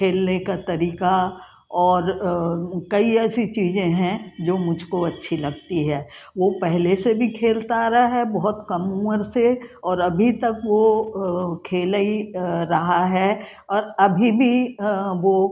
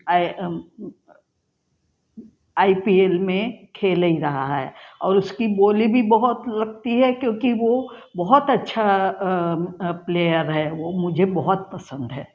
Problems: none marked